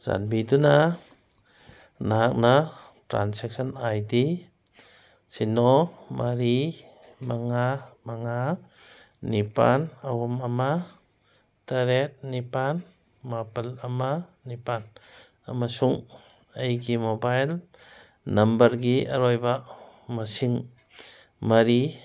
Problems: none marked